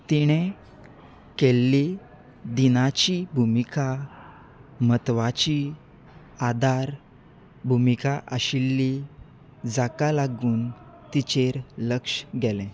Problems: none marked